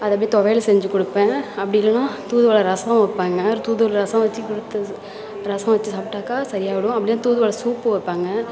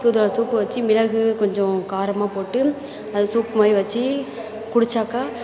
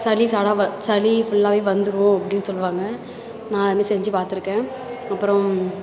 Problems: constant background noise, continuous background conversations